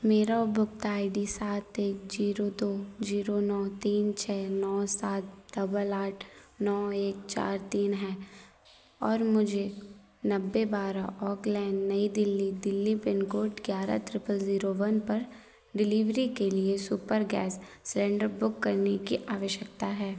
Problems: background sounds at intervals